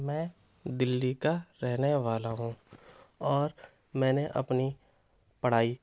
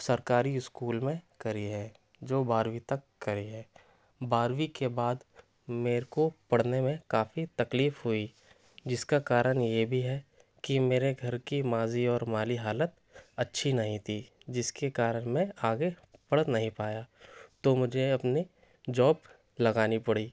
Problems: none marked